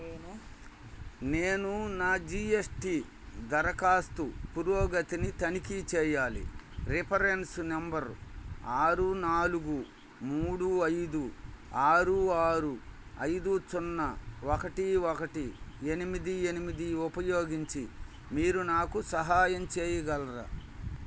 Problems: constant background noise